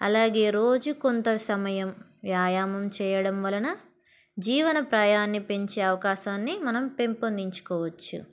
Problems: background sounds at intervals